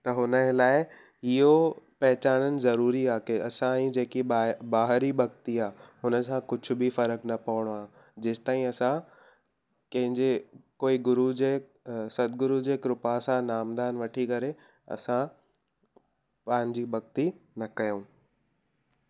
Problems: none marked